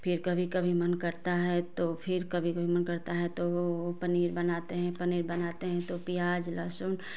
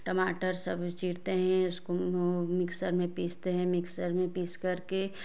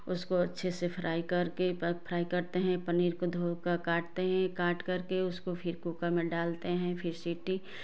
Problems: background sounds at intervals